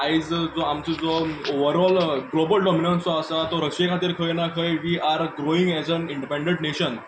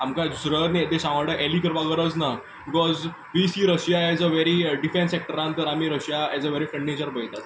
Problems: background sounds at intervals